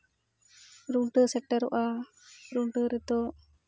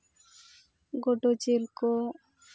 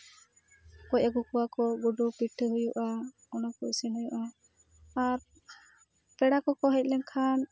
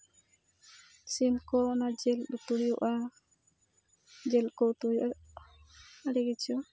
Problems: none marked